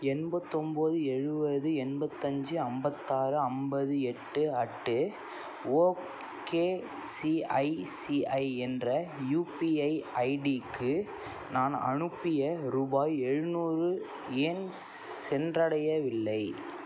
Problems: none marked